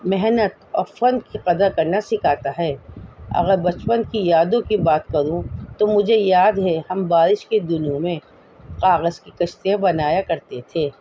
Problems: constant background noise